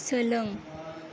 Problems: background sounds at intervals, background conversations at intervals